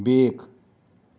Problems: background sounds at intervals